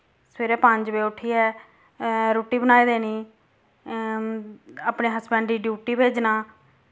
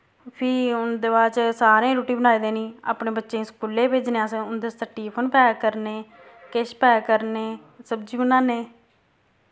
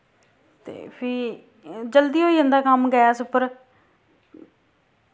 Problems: constant background noise